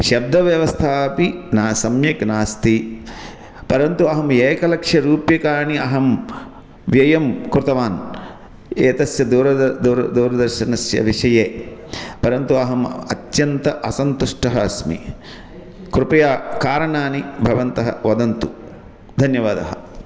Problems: constant background noise